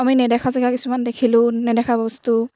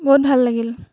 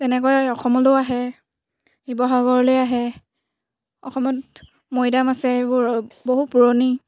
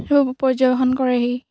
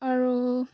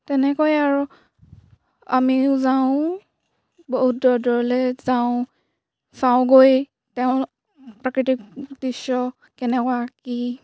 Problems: background sounds at intervals